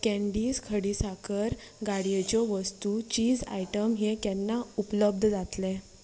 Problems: constant background noise